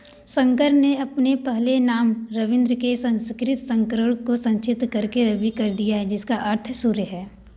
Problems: background sounds at intervals